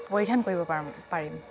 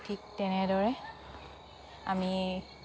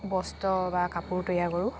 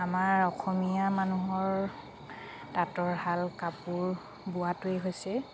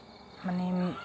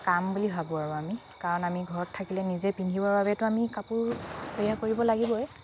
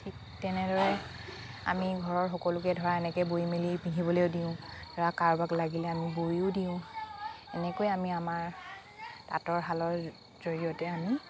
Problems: constant background noise, continuous background conversations